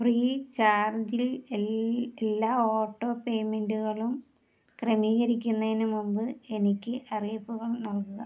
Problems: low volume